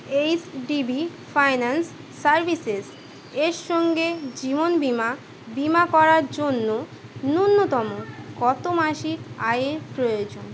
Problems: constant background noise